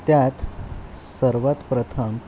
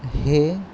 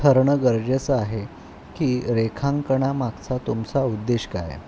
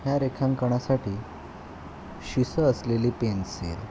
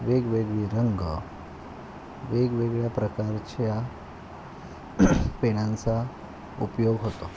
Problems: constant background noise